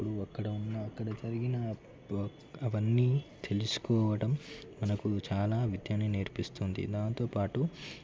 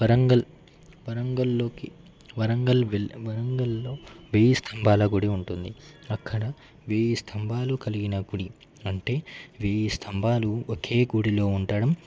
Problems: constant background noise